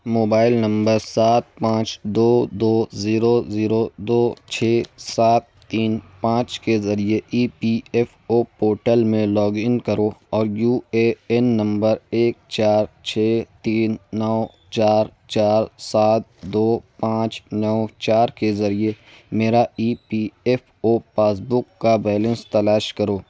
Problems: none marked